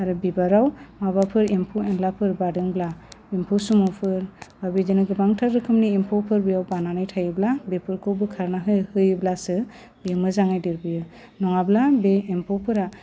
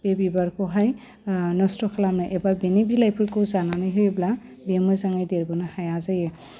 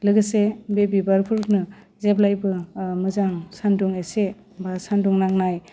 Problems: low volume